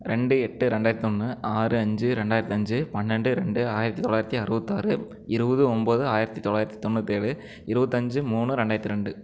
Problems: none marked